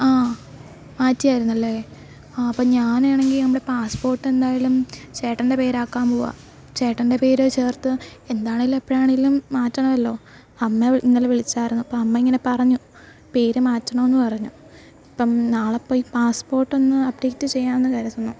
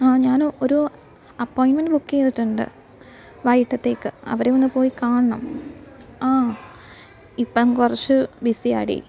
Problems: background sounds at intervals